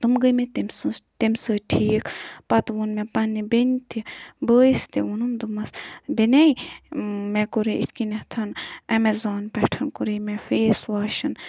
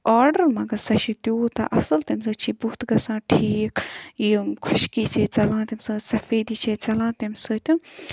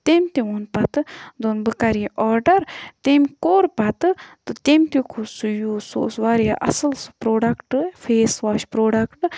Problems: background sounds at intervals